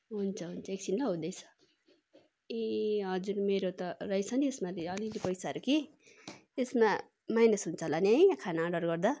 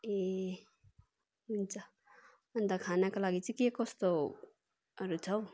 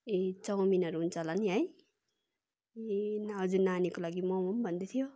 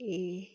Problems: constant background noise